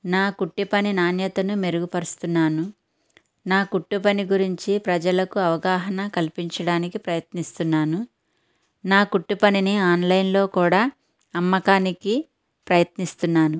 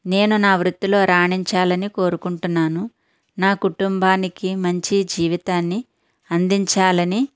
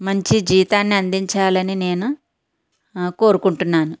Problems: none marked